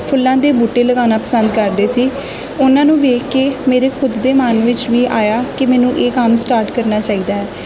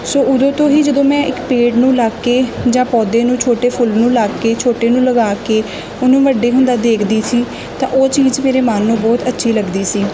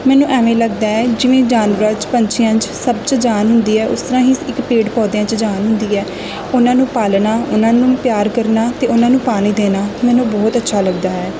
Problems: none marked